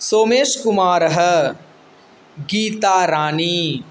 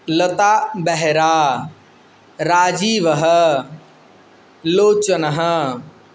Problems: none marked